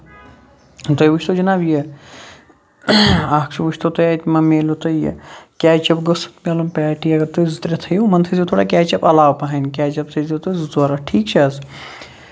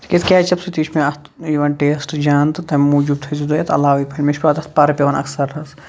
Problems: constant background noise